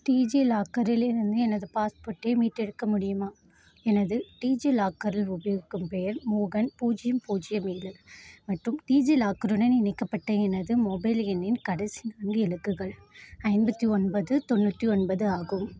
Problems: constant background noise